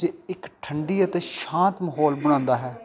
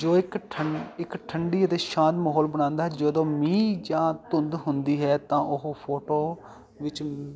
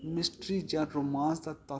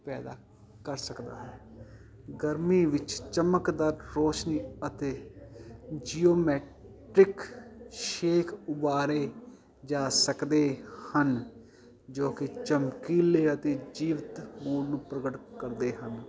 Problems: continuous background conversations